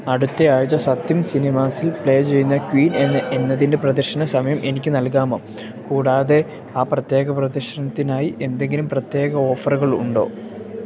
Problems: background sounds at intervals